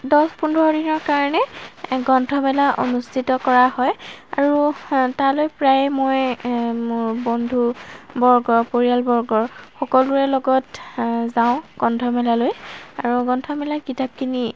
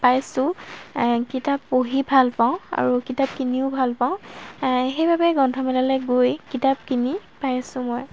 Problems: background sounds at intervals